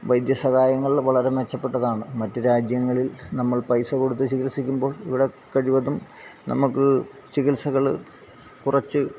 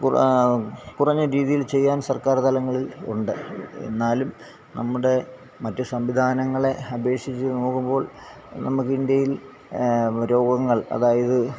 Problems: constant background noise, low volume